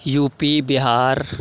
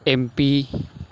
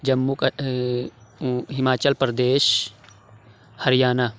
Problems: none marked